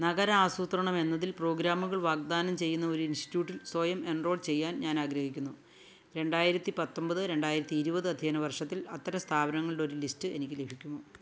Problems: none marked